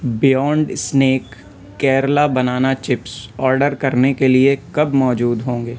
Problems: constant background noise